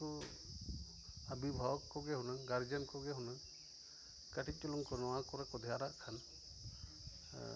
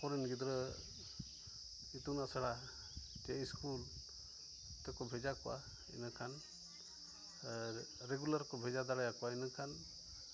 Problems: none marked